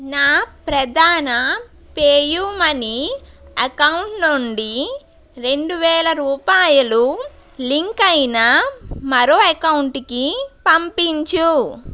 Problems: constant background noise